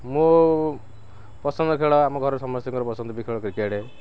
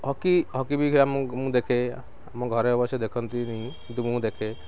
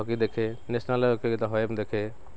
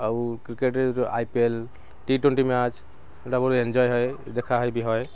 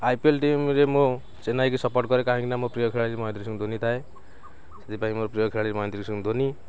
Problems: constant background noise, background conversations at intervals